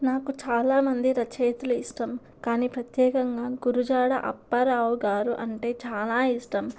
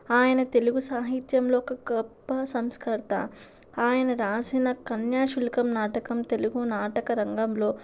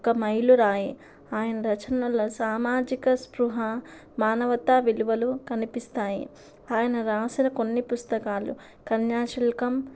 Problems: constant background noise